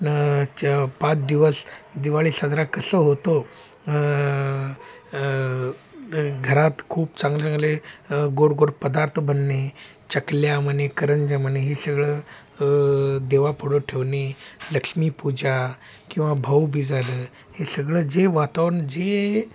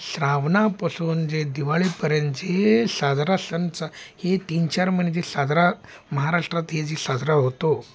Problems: background sounds at intervals, background conversations at intervals